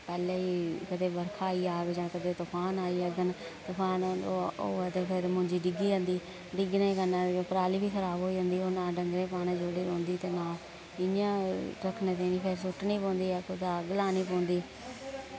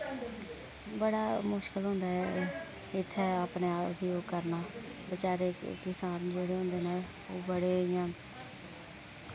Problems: constant background noise, low volume